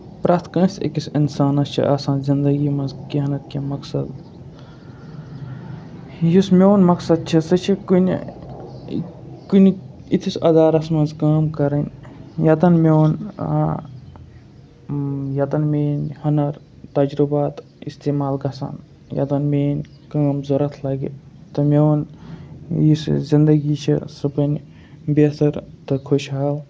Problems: none marked